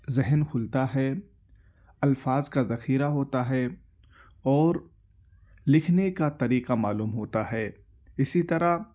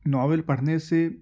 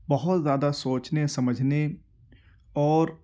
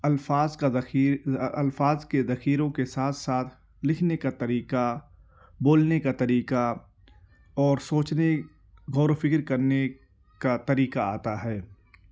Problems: background sounds at intervals